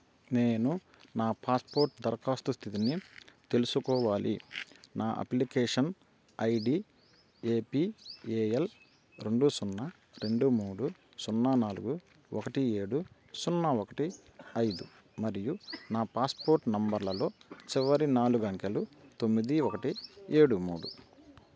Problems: constant background noise